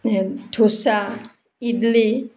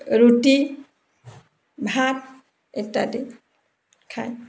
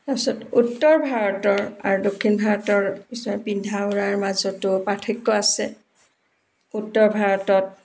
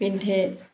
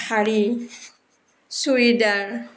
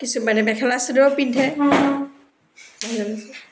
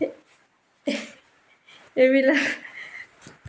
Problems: background sounds at intervals